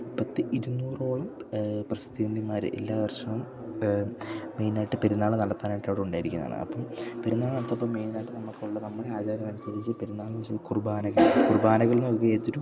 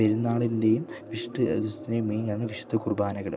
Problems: low volume